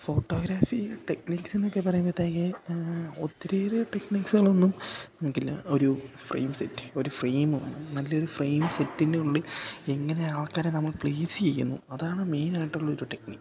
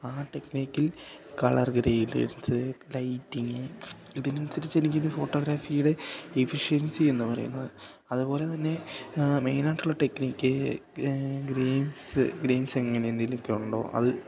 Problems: continuous background conversations